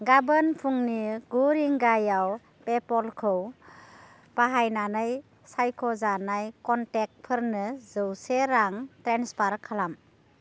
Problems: constant background noise